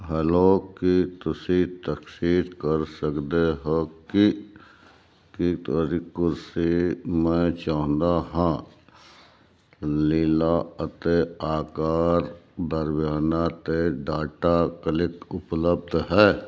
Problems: none marked